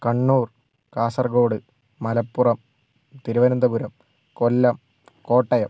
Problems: none marked